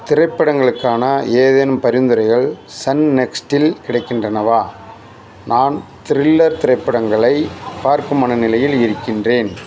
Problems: constant background noise